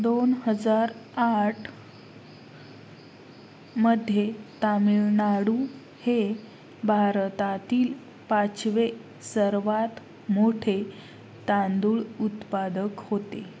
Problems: constant background noise